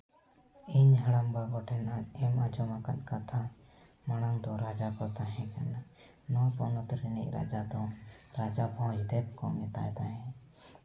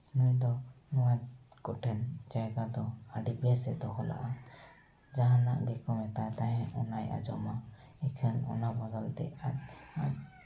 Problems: background sounds at intervals, echo